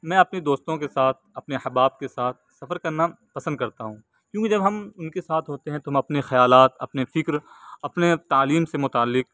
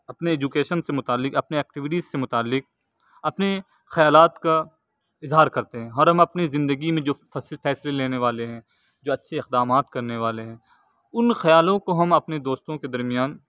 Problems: none marked